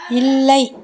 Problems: background conversations at intervals